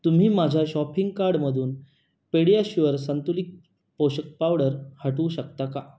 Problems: none marked